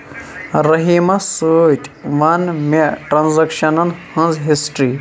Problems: background sounds at intervals